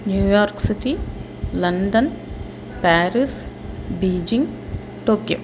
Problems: constant background noise